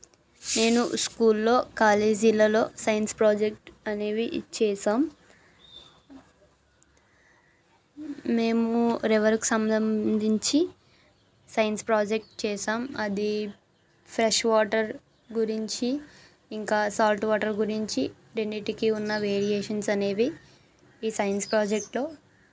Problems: background sounds at intervals